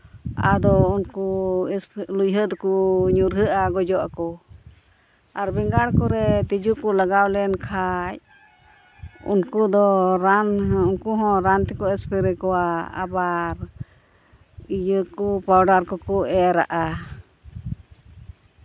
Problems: none marked